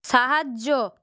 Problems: none marked